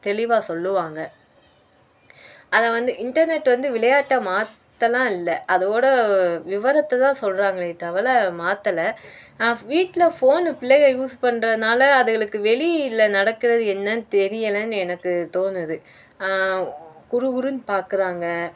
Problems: none marked